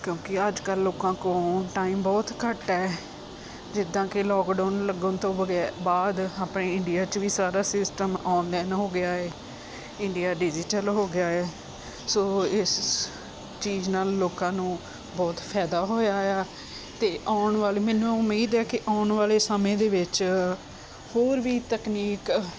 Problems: constant background noise